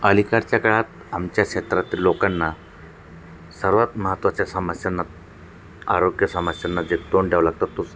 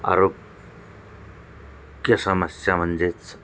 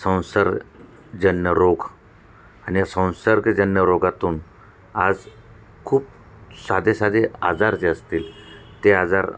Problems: none marked